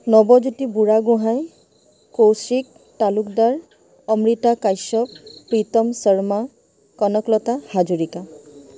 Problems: constant background noise